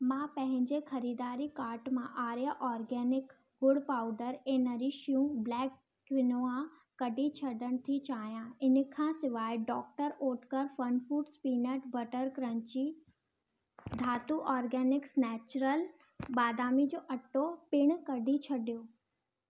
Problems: constant background noise